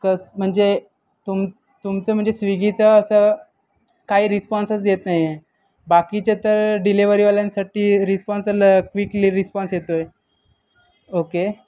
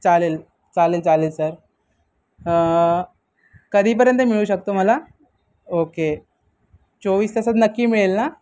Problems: constant background noise, continuous background conversations